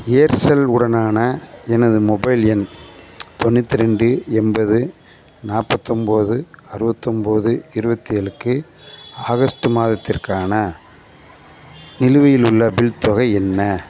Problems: constant background noise